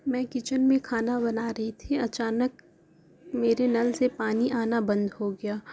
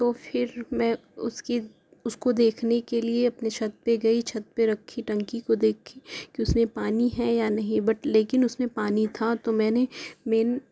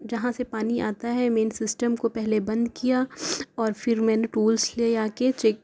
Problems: constant background noise